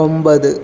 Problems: constant background noise, low volume